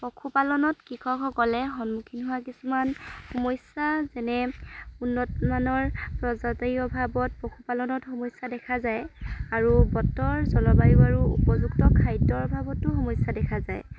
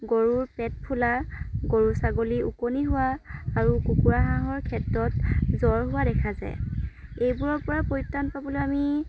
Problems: none marked